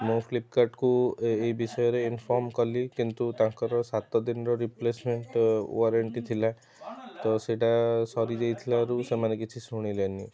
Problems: constant background noise, continuous background conversations